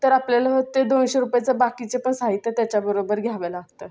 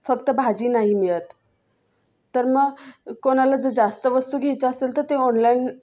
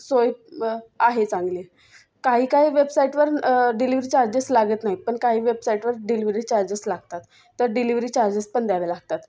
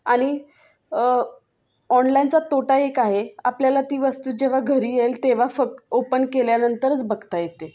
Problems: constant background noise, background conversations at intervals